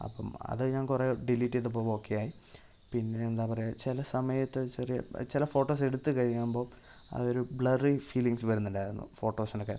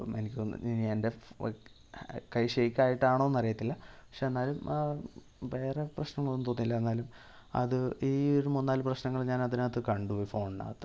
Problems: low volume